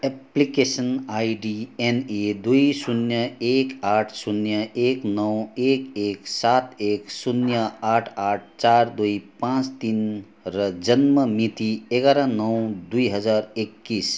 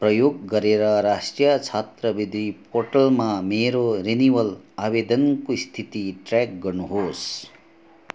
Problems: constant background noise